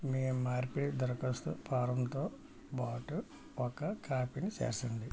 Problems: low volume